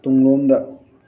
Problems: background conversations at intervals